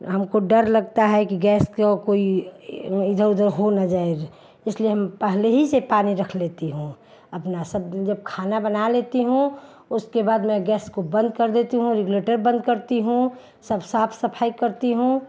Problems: constant background noise